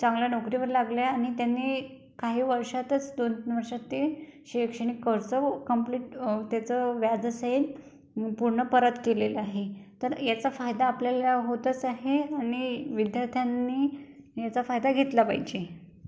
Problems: background sounds at intervals